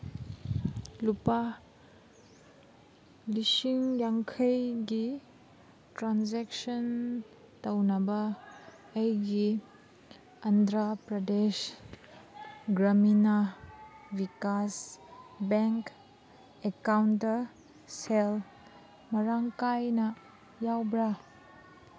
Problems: background sounds at intervals